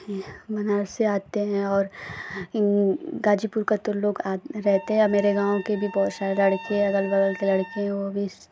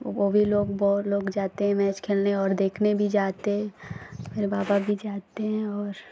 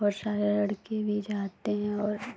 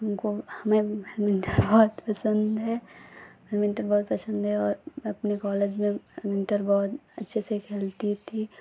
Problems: none marked